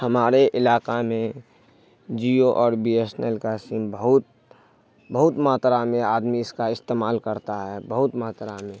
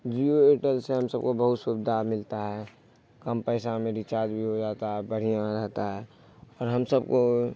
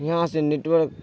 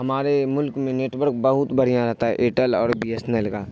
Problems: none marked